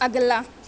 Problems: none marked